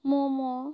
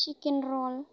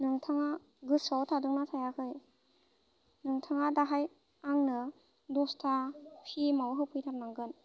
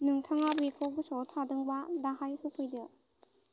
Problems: constant background noise